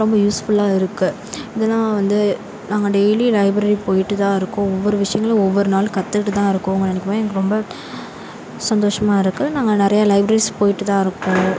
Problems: constant background noise, background conversations at intervals